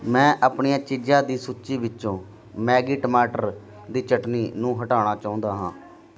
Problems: none marked